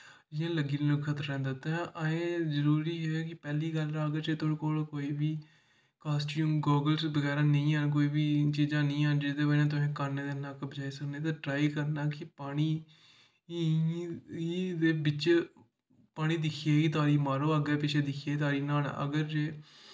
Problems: echo